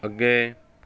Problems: none marked